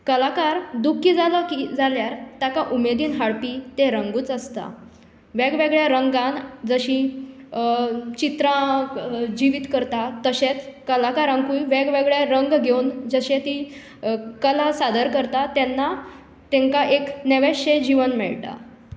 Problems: echo